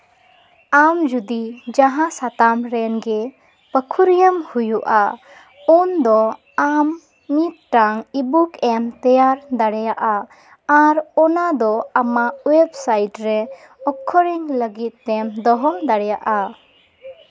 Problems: background sounds at intervals